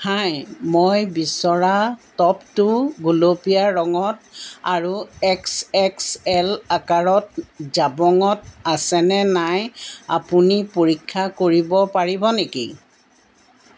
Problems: background sounds at intervals